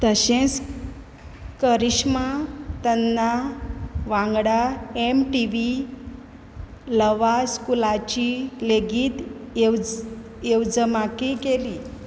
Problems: background sounds at intervals